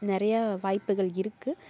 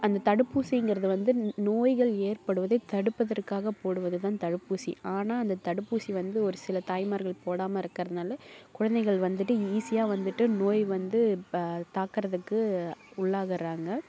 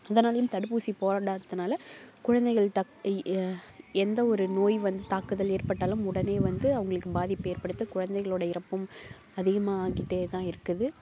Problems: background sounds at intervals